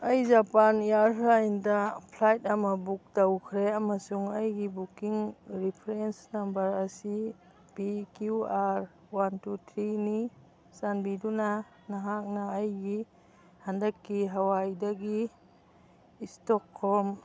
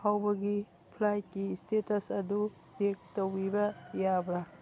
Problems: background sounds at intervals, background conversations at intervals